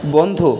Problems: none marked